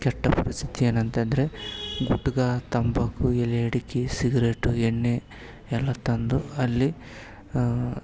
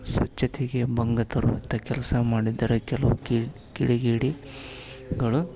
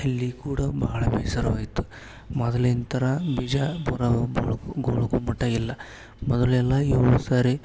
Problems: background sounds at intervals